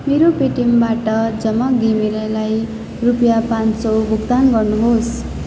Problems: background sounds at intervals